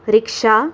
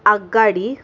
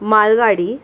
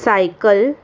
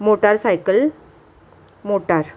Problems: none marked